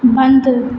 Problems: constant background noise, echo